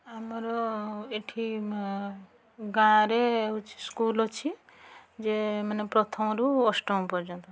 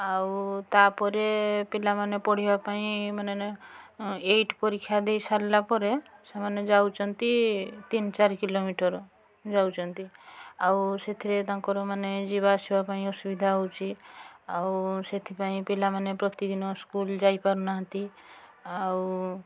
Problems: constant background noise, continuous background conversations